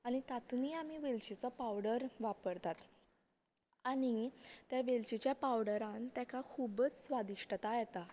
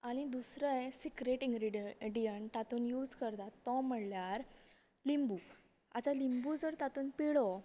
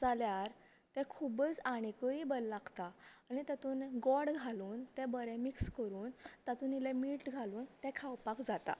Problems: none marked